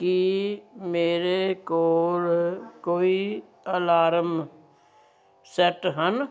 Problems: none marked